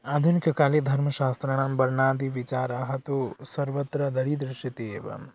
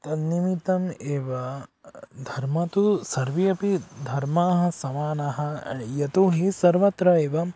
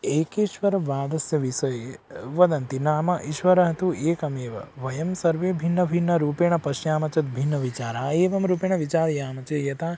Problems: background sounds at intervals, background conversations at intervals